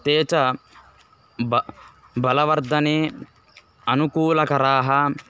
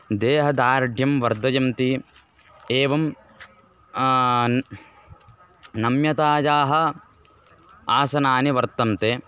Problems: constant background noise